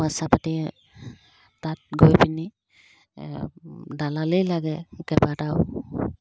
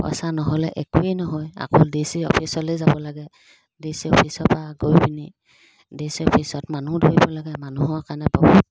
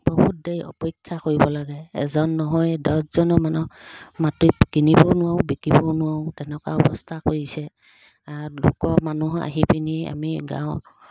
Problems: constant background noise